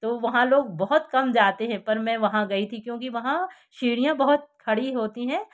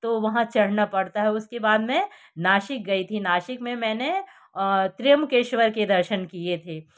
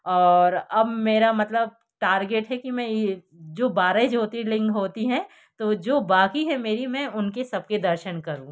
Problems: none marked